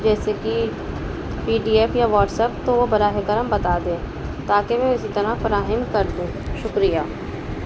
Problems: constant background noise